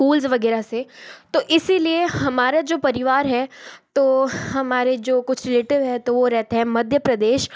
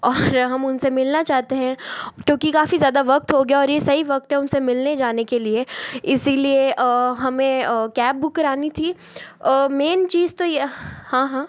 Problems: background sounds at intervals